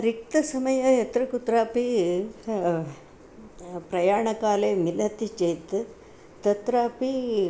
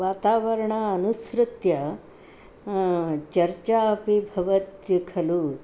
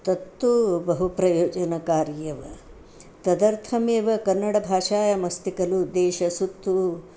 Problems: none marked